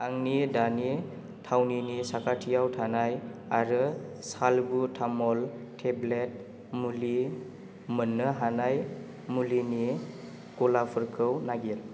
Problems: constant background noise